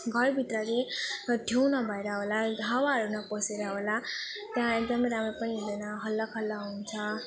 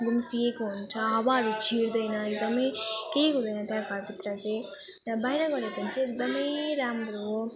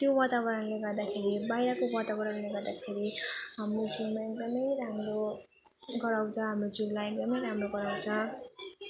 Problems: continuous background conversations